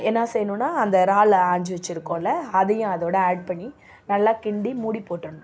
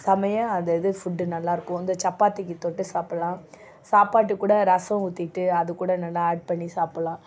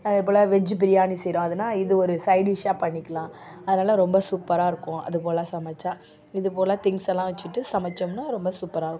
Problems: none marked